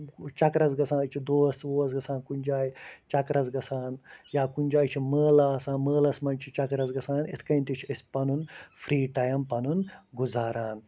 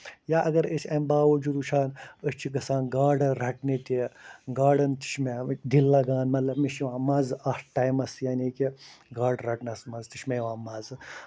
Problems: constant background noise